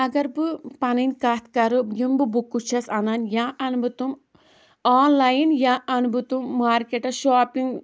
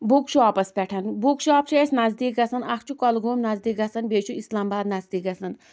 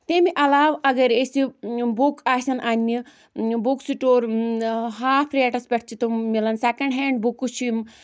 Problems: background sounds at intervals